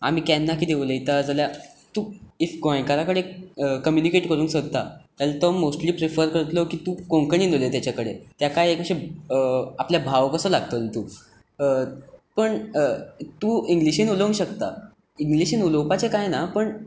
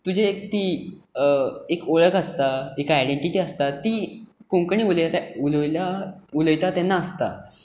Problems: none marked